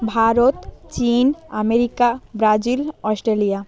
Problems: background conversations at intervals